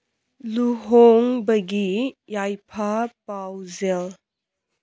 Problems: none marked